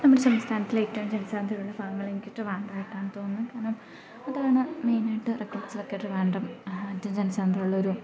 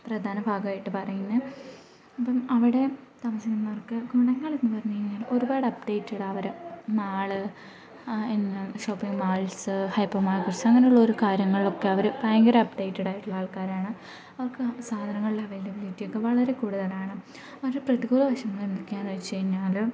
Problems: background sounds at intervals